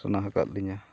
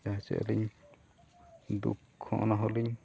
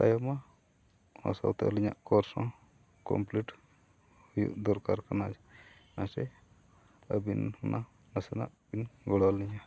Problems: none marked